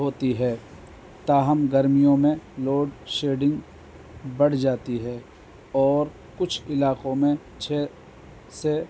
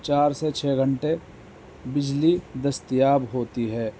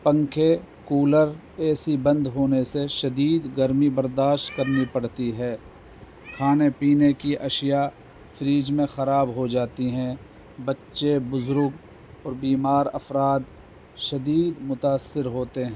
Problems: constant background noise, low volume